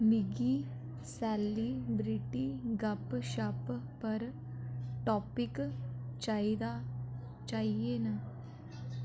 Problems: background sounds at intervals